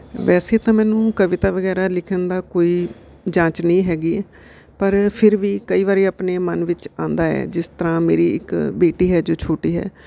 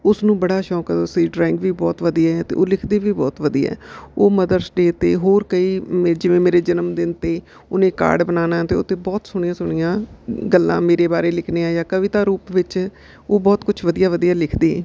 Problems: background sounds at intervals